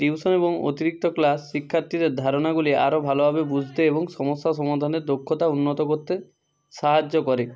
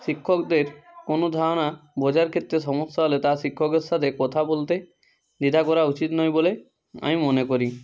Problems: constant background noise